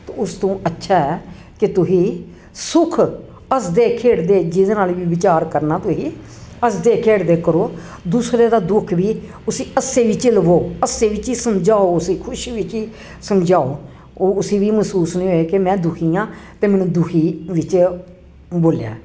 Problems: none marked